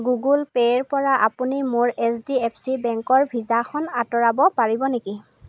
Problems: none marked